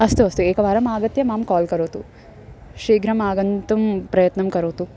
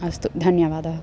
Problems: background sounds at intervals